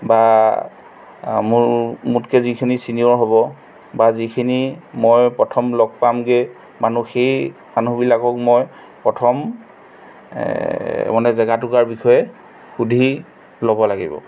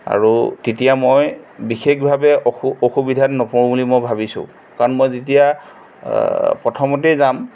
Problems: background sounds at intervals